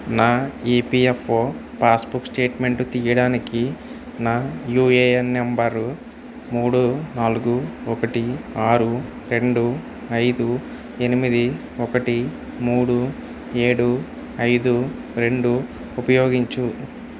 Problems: constant background noise